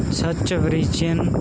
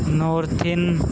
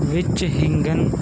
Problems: constant background noise